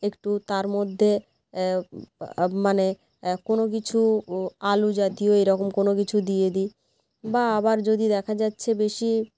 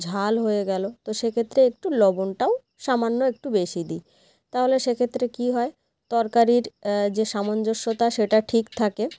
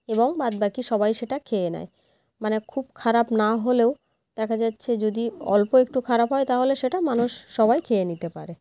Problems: constant background noise